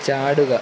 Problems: constant background noise